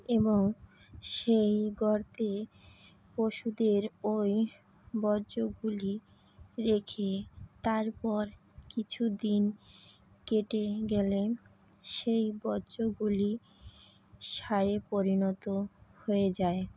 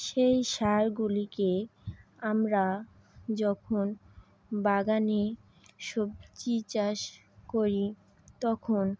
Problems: none marked